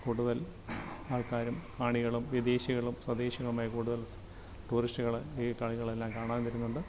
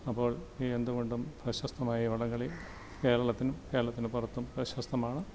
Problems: constant background noise, low volume